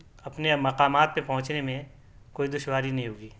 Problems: none marked